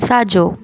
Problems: constant background noise